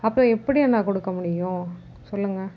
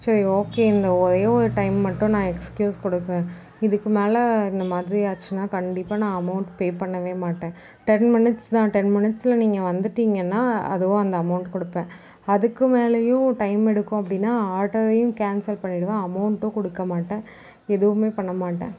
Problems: none marked